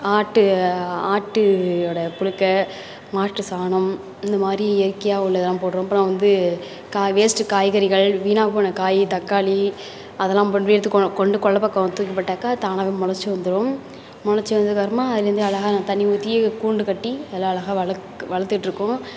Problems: constant background noise, continuous background conversations